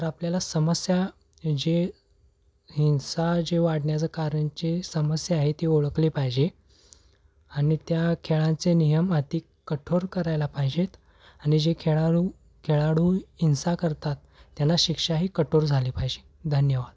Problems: none marked